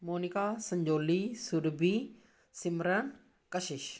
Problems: none marked